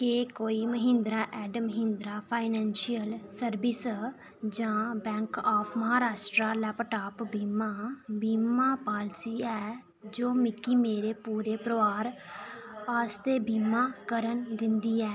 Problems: none marked